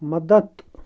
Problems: constant background noise